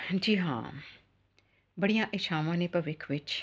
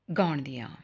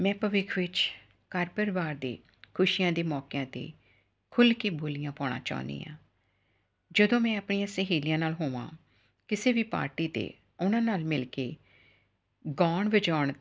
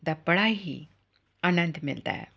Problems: none marked